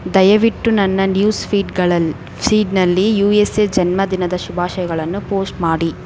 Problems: constant background noise